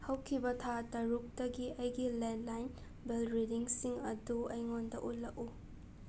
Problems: background sounds at intervals, low volume